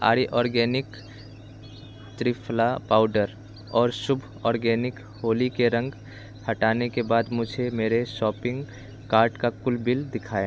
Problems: none marked